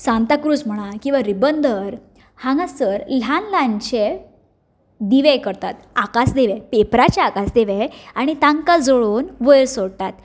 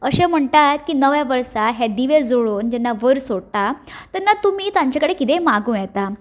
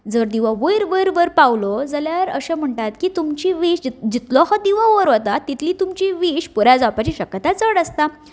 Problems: none marked